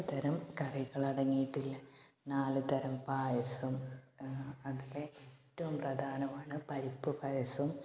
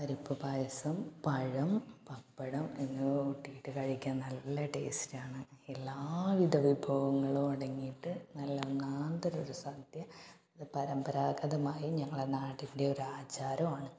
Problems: low volume